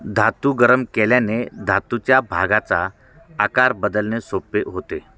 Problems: background sounds at intervals, background conversations at intervals